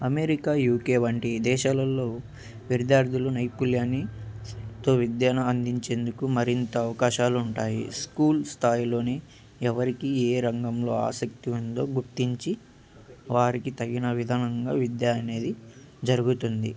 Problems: constant background noise